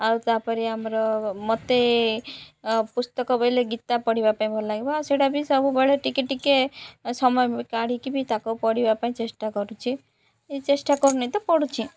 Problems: none marked